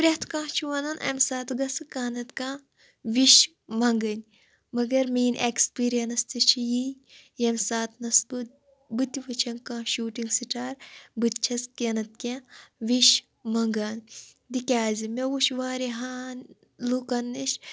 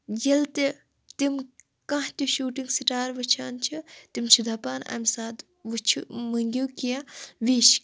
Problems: none marked